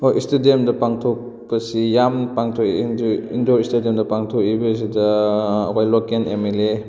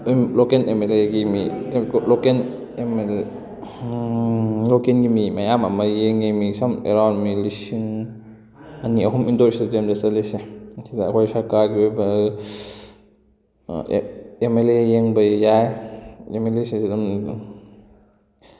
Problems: constant background noise